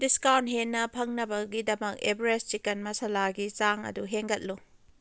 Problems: none marked